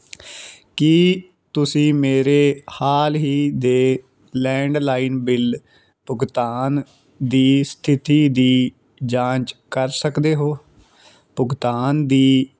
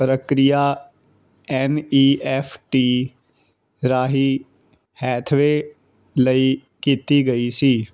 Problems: background sounds at intervals